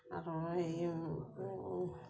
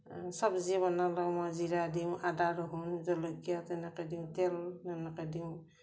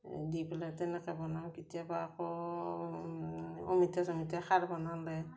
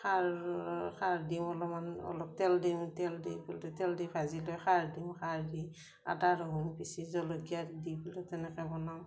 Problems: none marked